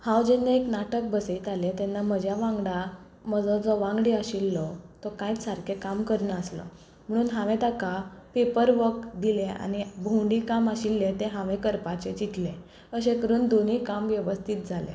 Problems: low volume